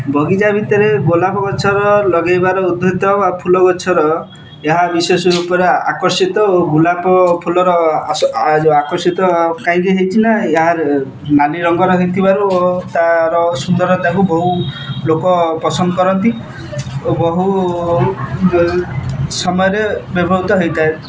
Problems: constant background noise